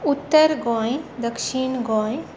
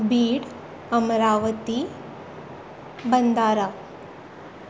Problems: background sounds at intervals